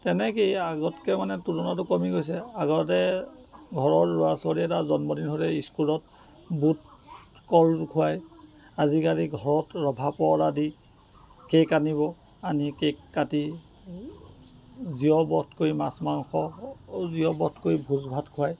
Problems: constant background noise